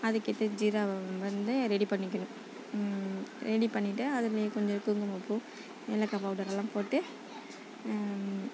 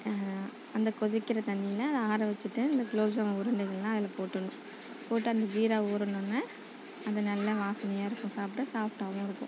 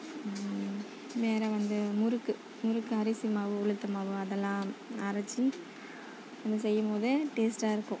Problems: low volume